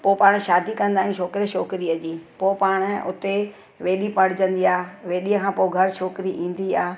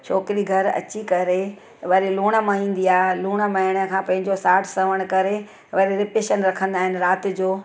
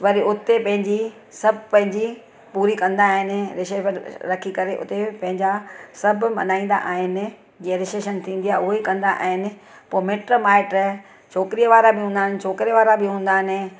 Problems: none marked